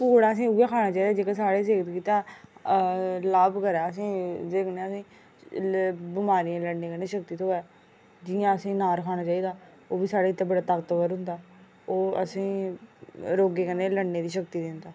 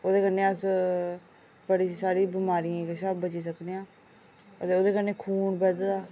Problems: none marked